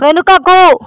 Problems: constant background noise